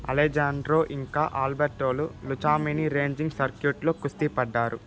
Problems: constant background noise